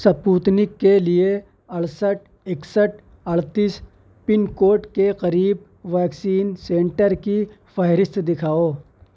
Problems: none marked